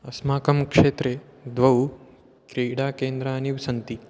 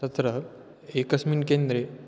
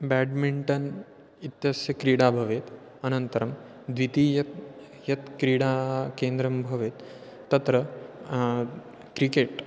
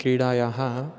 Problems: constant background noise